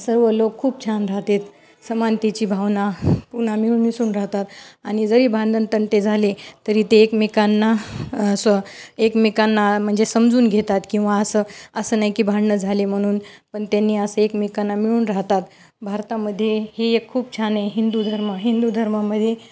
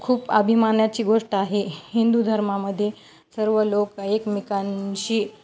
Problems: none marked